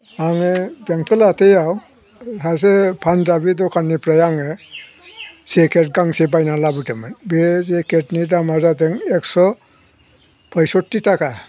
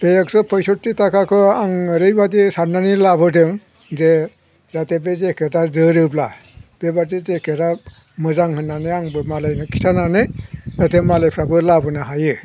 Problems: none marked